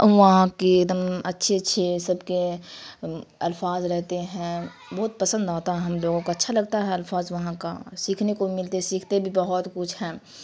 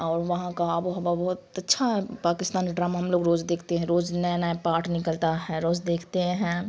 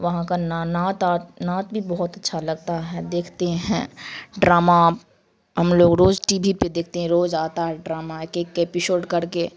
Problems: constant background noise